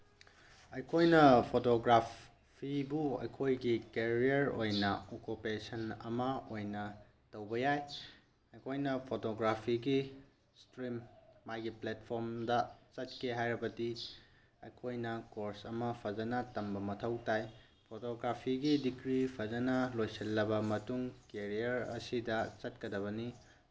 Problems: none marked